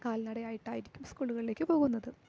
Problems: low volume